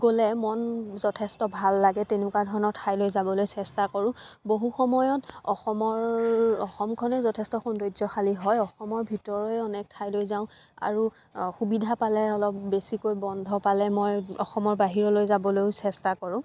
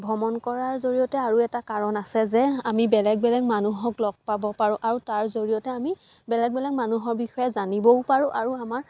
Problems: constant background noise